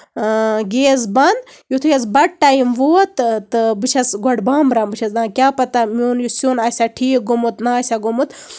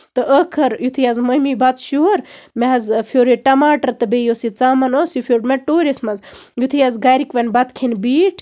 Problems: background sounds at intervals